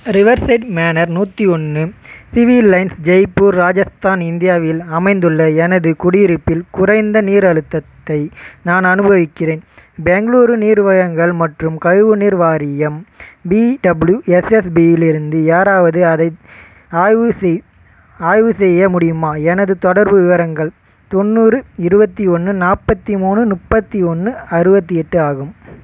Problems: constant background noise